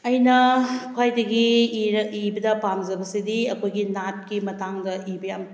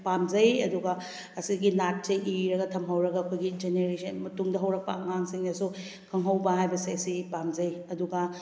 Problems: none marked